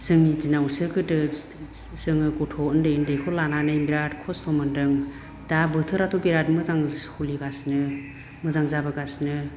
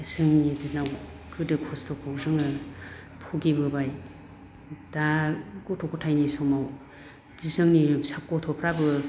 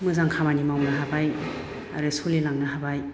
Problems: none marked